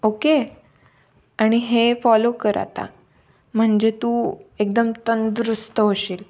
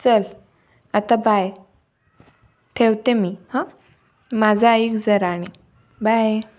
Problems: background sounds at intervals